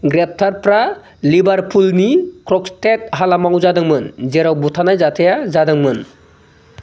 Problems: low volume